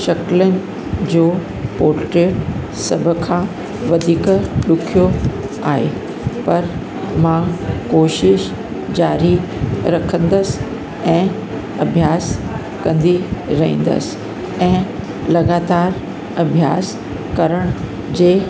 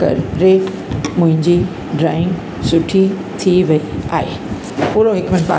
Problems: constant background noise